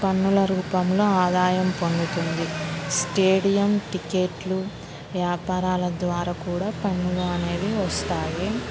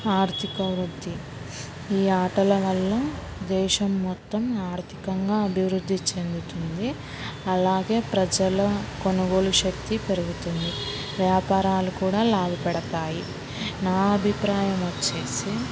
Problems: background sounds at intervals